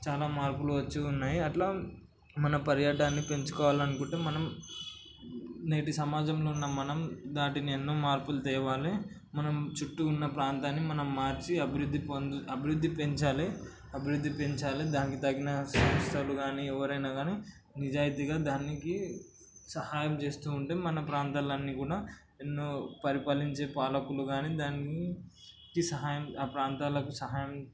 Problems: constant background noise